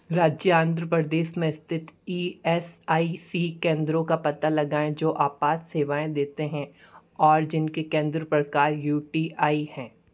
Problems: none marked